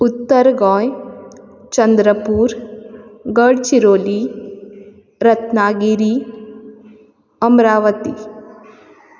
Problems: constant background noise